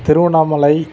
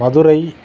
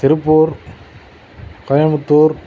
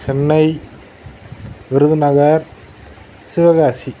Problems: constant background noise